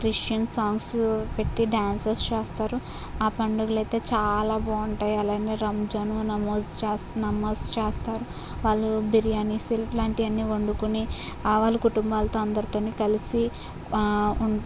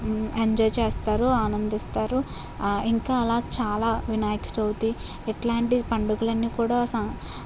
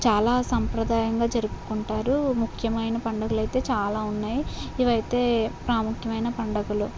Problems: none marked